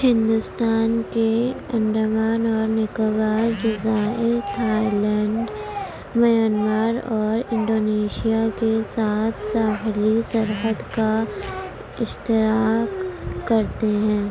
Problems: constant background noise, low volume